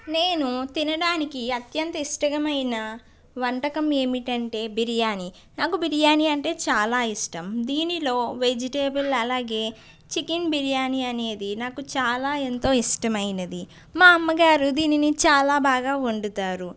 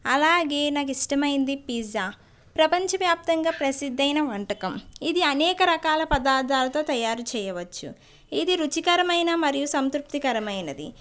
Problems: background conversations at intervals